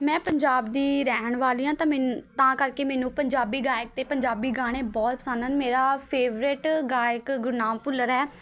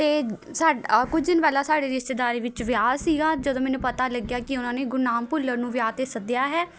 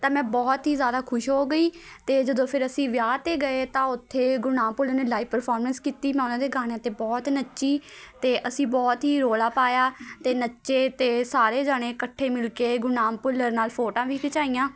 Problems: constant background noise, background conversations at intervals